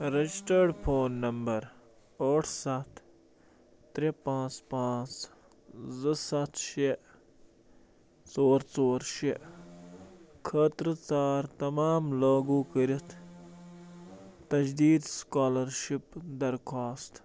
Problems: background sounds at intervals